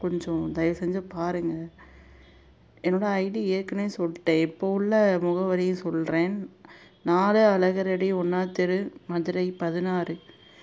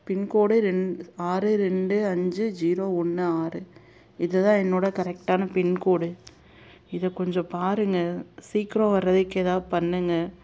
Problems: none marked